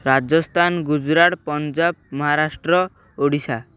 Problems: none marked